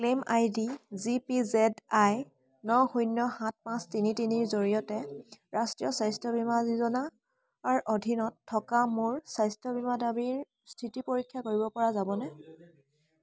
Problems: constant background noise, background conversations at intervals